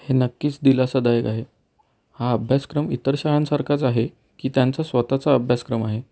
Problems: none marked